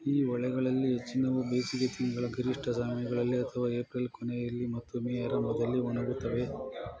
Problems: continuous background conversations